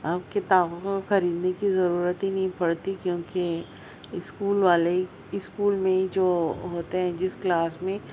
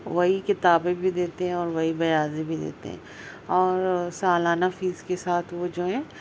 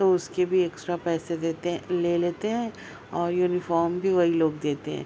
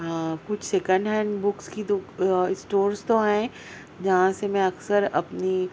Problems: constant background noise, background conversations at intervals